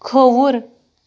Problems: none marked